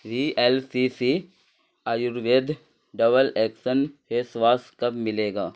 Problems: none marked